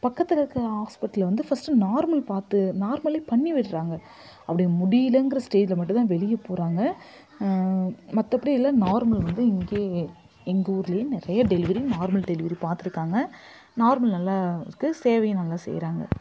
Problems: background sounds at intervals